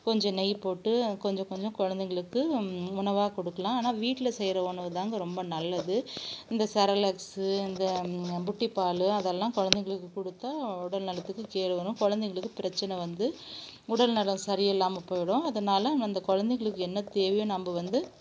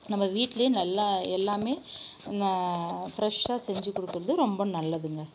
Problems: none marked